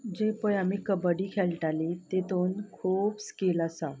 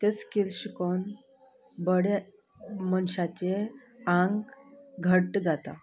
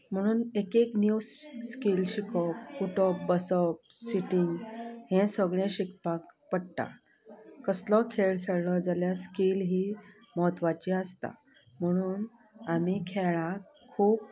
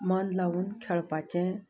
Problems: low volume